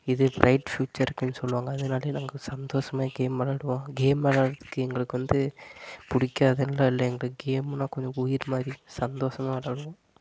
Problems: constant background noise